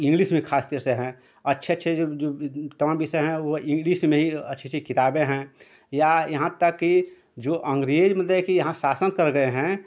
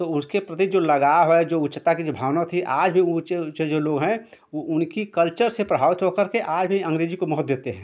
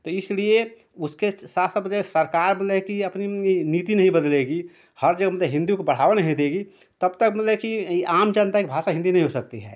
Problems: constant background noise